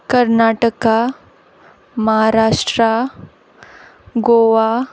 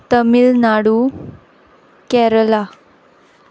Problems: constant background noise